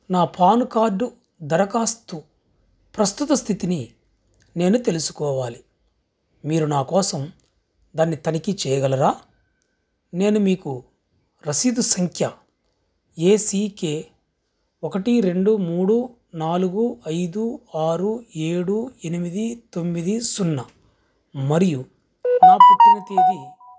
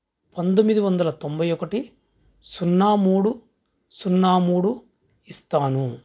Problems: background sounds at intervals